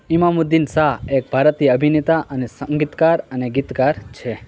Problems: none marked